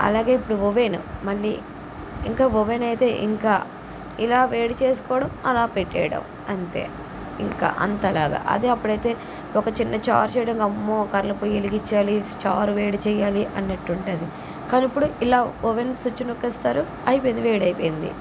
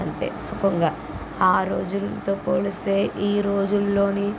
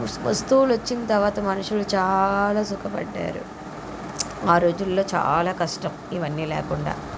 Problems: constant background noise